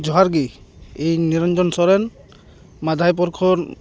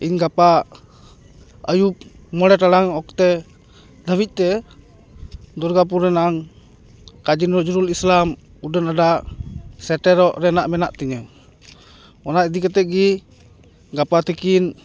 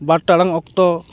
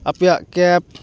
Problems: none marked